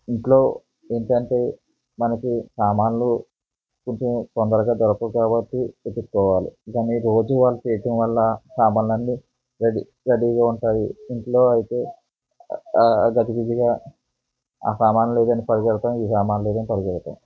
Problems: background conversations at intervals